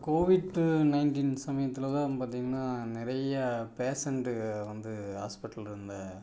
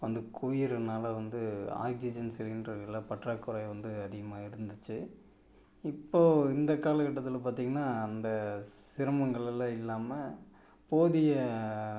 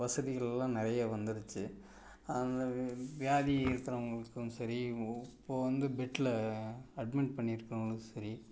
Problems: none marked